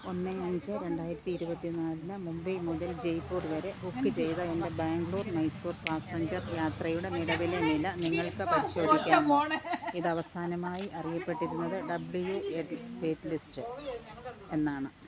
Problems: low volume